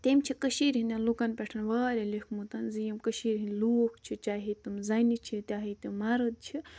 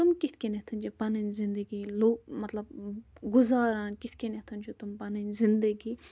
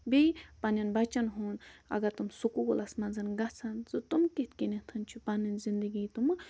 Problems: none marked